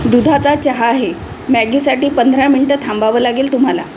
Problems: constant background noise